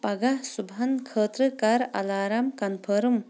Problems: none marked